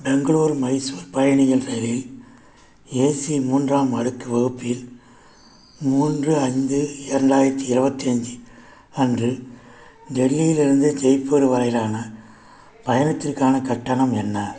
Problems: none marked